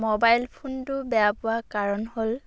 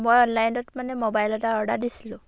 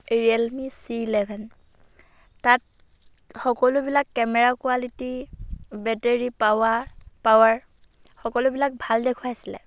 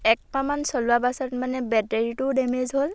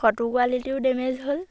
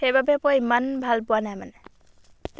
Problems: background sounds at intervals